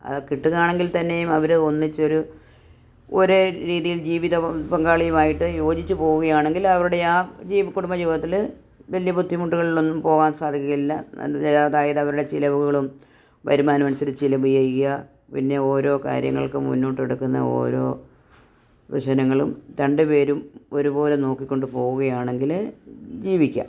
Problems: none marked